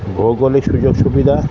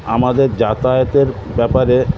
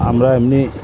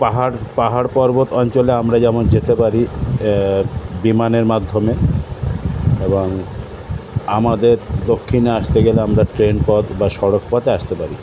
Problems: constant background noise, continuous background conversations